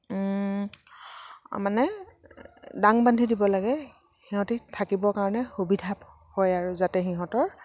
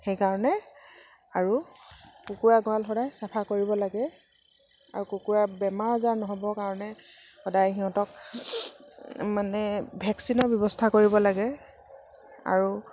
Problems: background sounds at intervals